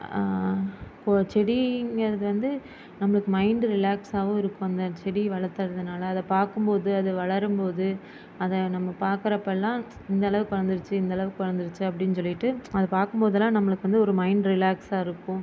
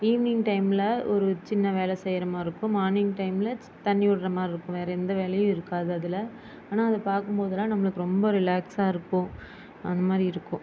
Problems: constant background noise